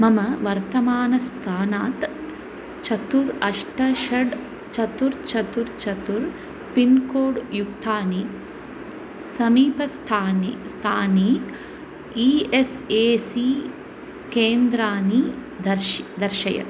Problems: constant background noise